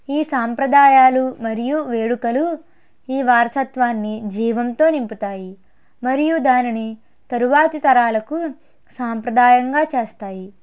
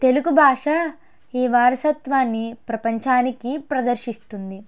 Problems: none marked